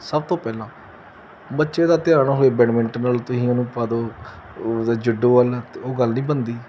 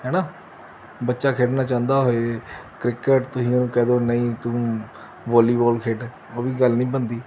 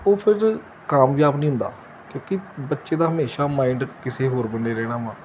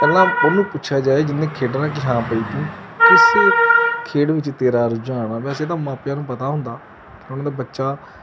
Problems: constant background noise